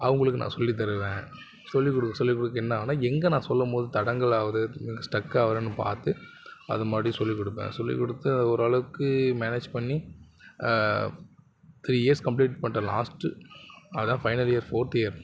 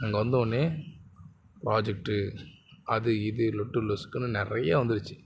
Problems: constant background noise, continuous background conversations